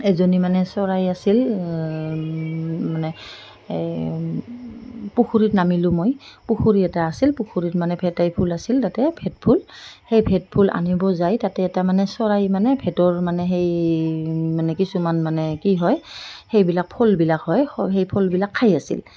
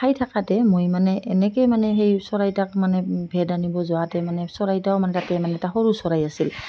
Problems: none marked